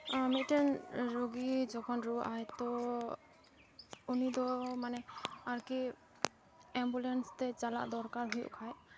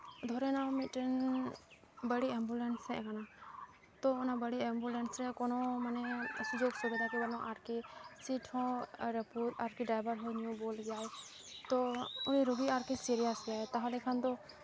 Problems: constant background noise